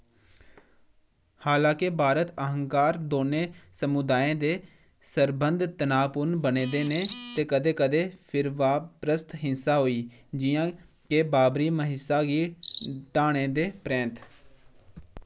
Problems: background sounds at intervals